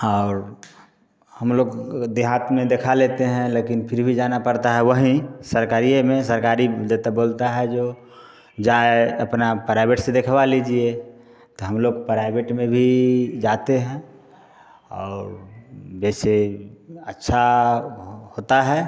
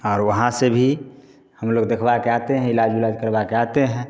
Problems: none marked